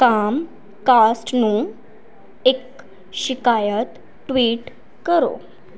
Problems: background sounds at intervals